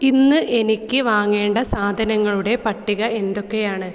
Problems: echo